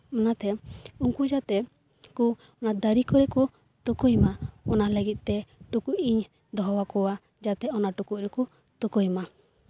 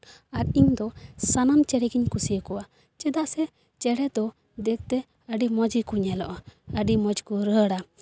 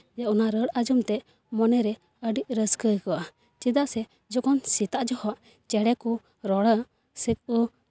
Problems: none marked